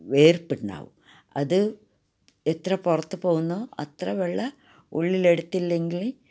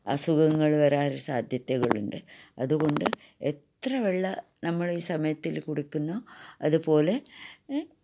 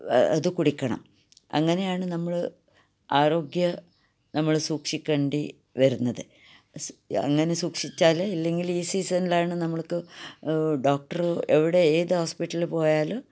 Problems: none marked